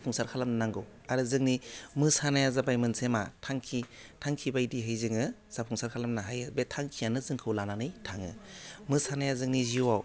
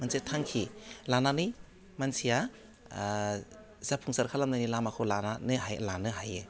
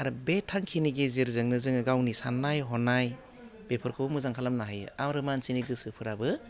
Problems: low volume